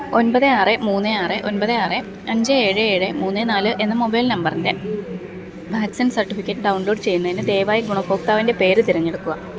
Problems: constant background noise